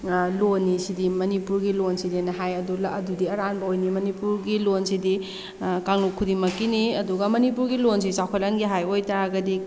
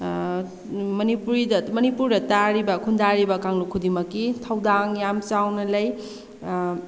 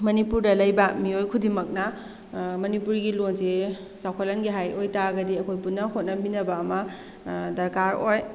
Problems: background sounds at intervals